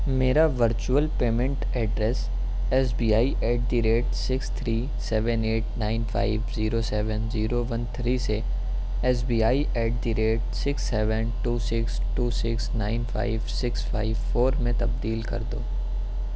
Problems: constant background noise